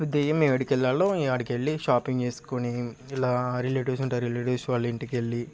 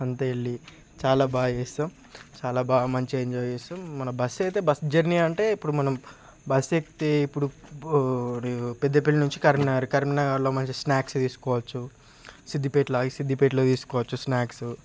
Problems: constant background noise